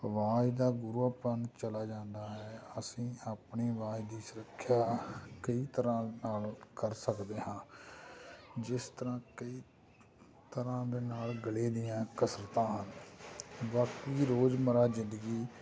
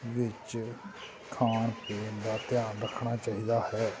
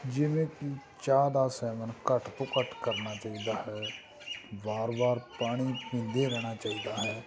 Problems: none marked